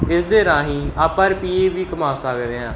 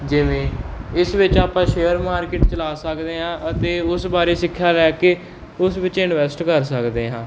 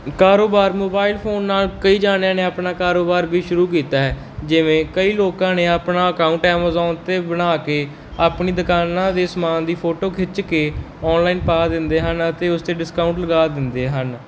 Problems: none marked